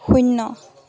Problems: constant background noise